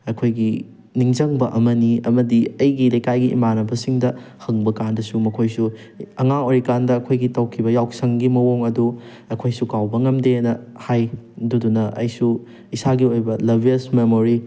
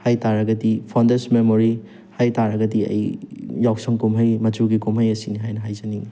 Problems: none marked